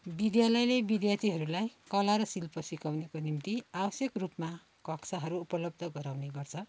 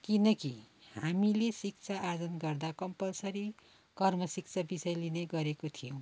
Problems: background sounds at intervals